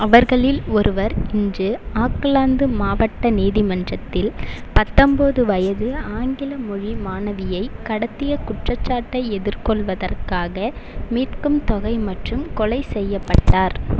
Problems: none marked